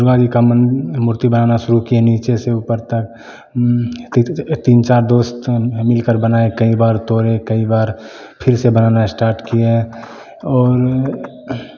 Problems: none marked